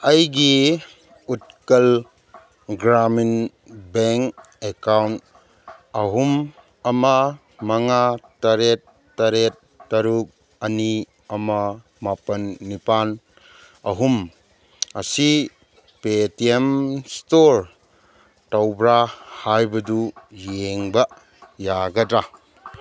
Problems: background conversations at intervals